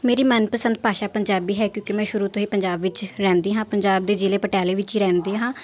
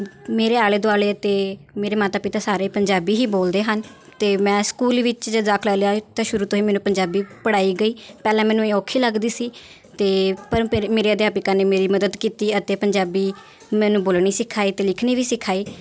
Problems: constant background noise